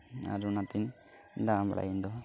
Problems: background sounds at intervals, low volume